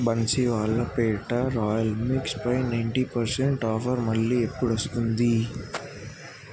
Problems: constant background noise